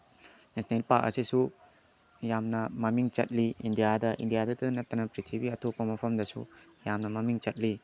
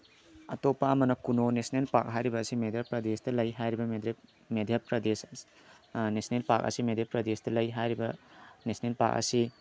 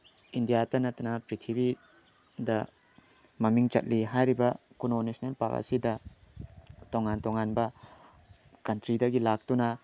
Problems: none marked